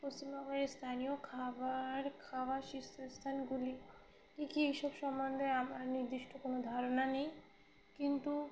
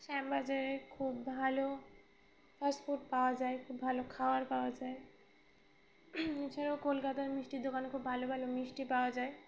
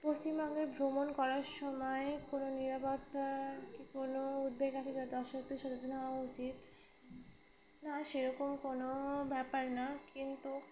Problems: background sounds at intervals, background conversations at intervals